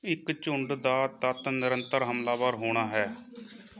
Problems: constant background noise